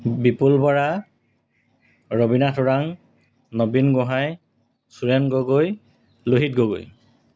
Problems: constant background noise